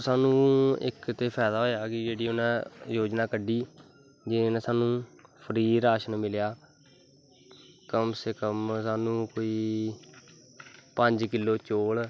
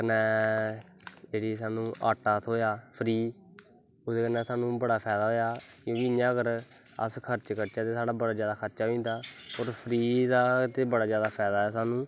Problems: constant background noise